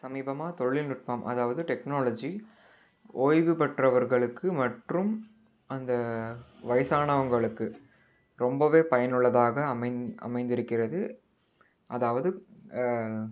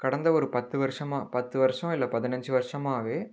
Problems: none marked